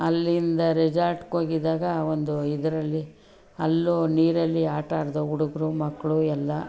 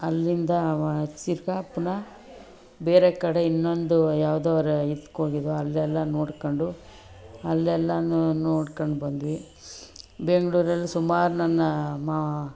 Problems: none marked